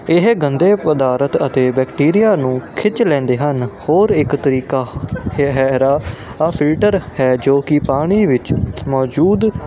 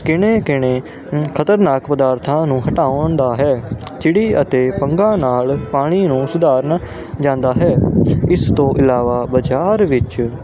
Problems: constant background noise